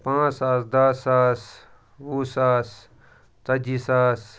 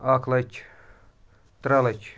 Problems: none marked